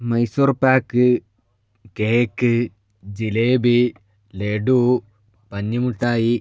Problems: none marked